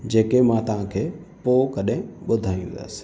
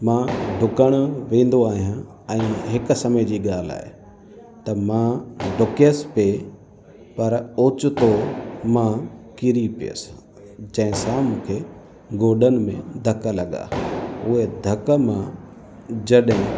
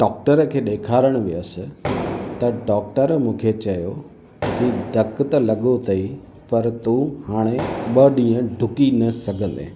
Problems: constant background noise, echo